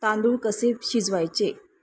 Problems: constant background noise